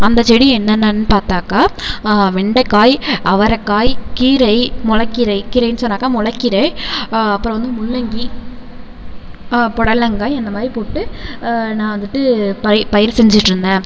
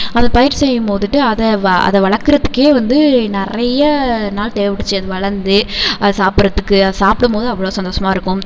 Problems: none marked